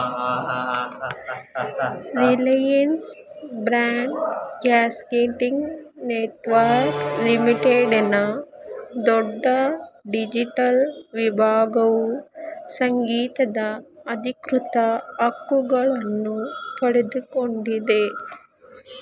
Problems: background sounds at intervals, background conversations at intervals